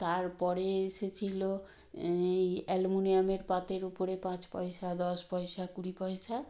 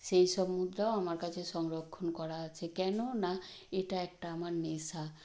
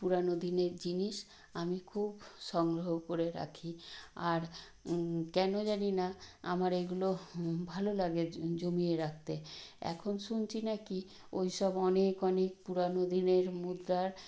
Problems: none marked